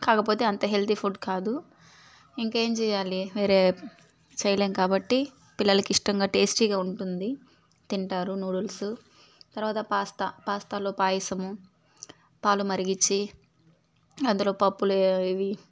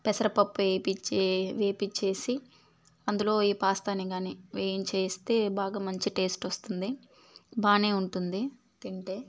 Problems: background sounds at intervals